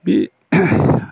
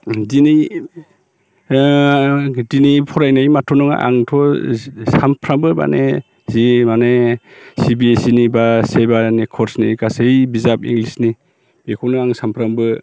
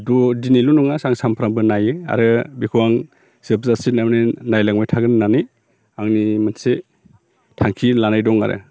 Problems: none marked